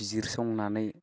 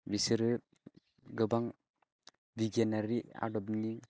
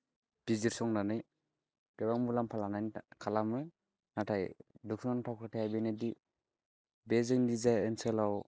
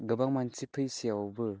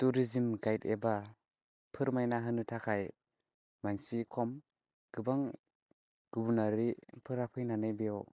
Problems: constant background noise